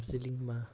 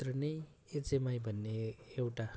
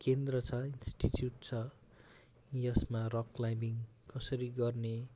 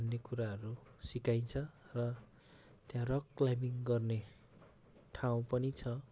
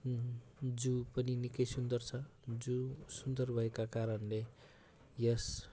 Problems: constant background noise